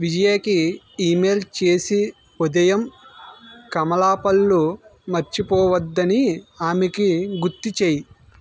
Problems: constant background noise